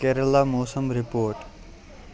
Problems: constant background noise